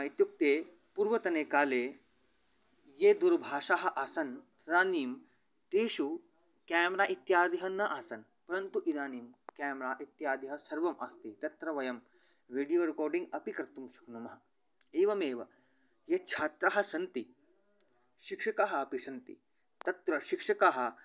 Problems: none marked